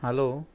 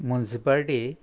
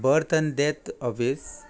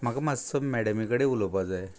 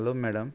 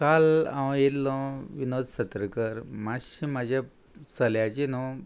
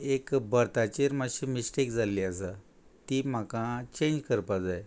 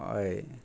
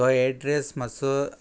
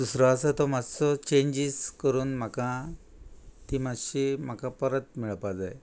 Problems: none marked